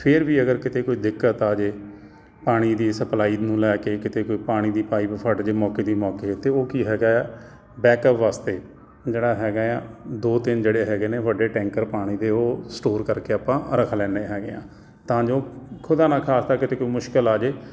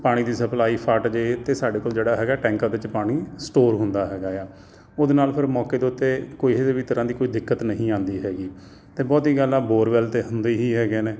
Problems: constant background noise